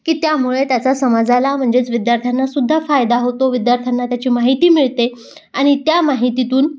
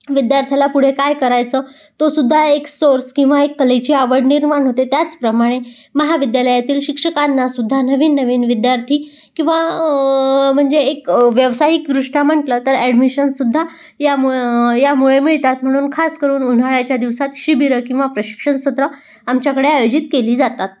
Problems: background sounds at intervals